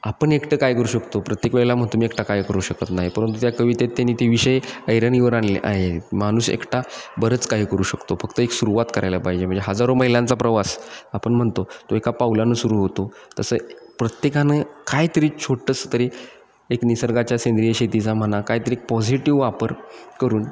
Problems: none marked